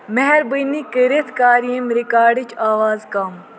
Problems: constant background noise, echo